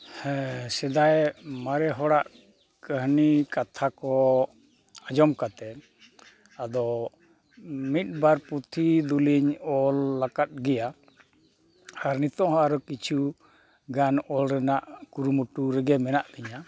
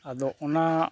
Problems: none marked